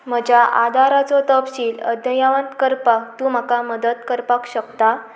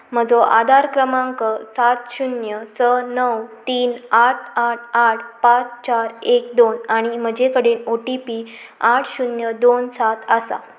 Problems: background sounds at intervals